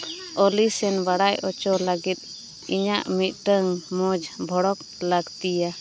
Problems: background sounds at intervals